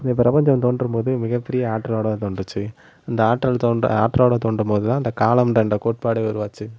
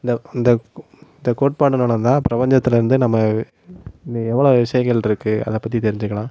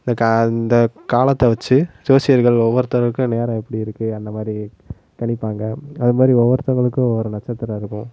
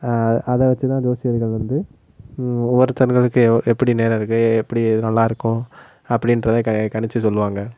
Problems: background sounds at intervals